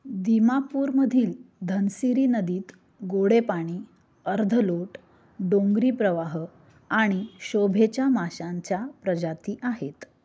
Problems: none marked